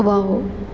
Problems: constant background noise